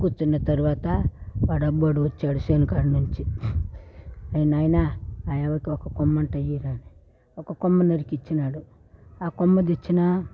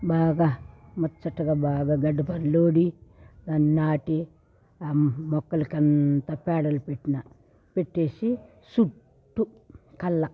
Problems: background sounds at intervals, background conversations at intervals